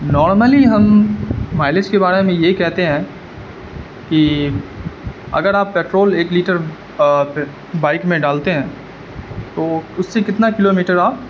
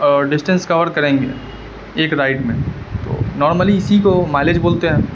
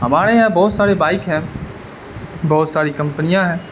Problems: constant background noise